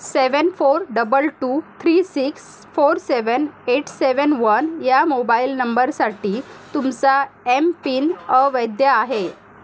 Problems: none marked